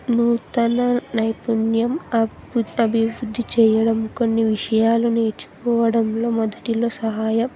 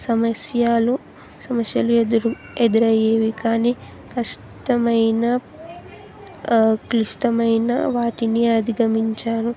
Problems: background sounds at intervals, continuous background conversations